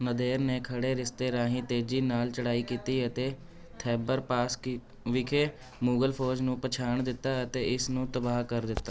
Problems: continuous background conversations